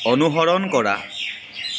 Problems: constant background noise